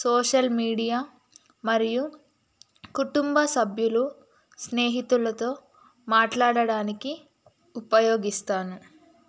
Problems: constant background noise